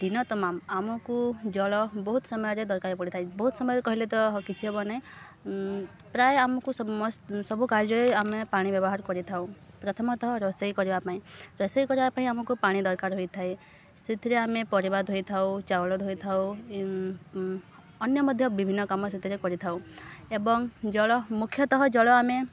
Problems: none marked